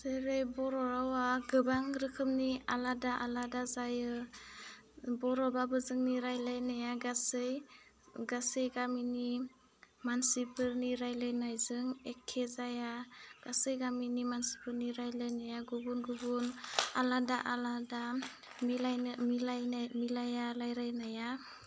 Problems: low volume